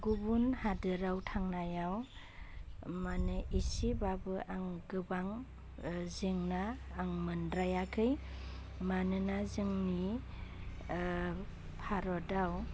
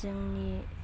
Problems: constant background noise